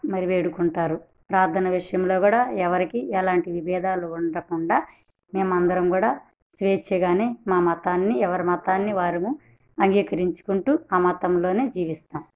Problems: none marked